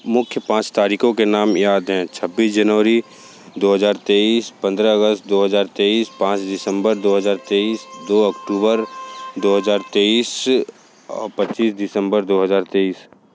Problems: constant background noise